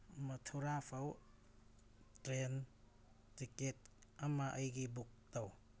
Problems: background sounds at intervals